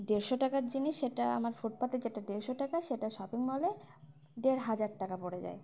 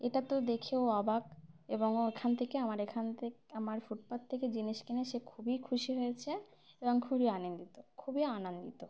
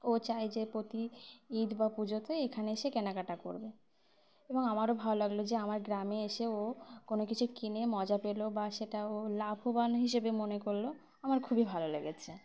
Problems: background sounds at intervals